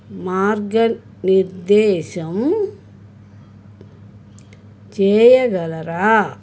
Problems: none marked